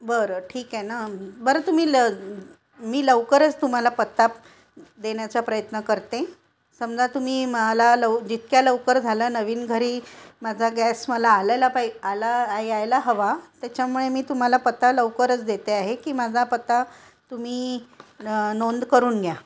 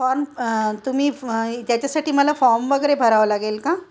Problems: constant background noise, continuous background conversations